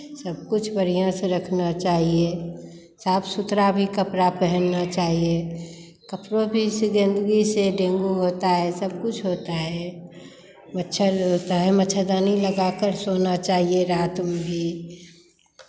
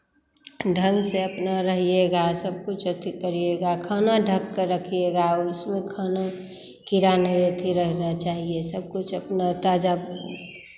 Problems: background sounds at intervals